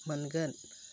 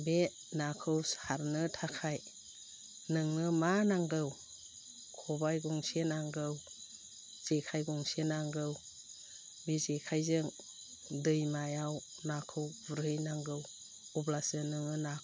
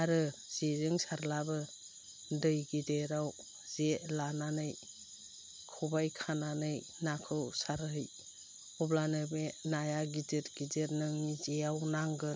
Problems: low volume